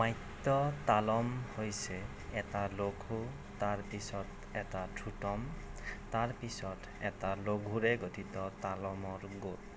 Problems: none marked